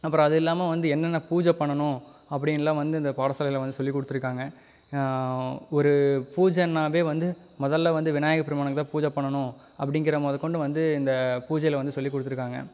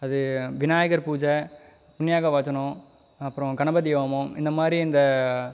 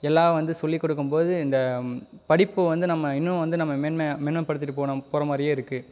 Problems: none marked